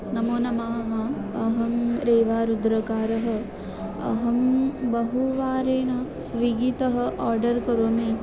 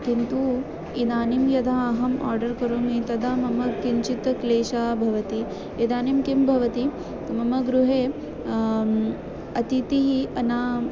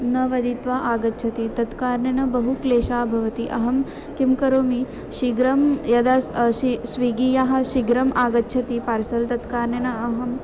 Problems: constant background noise, continuous background conversations